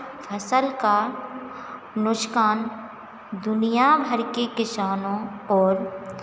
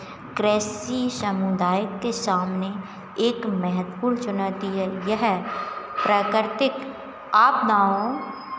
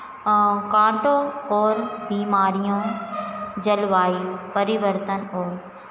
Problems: background sounds at intervals